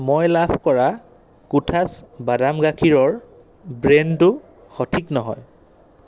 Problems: constant background noise